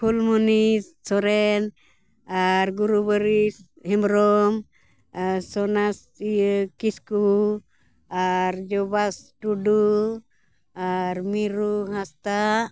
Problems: background sounds at intervals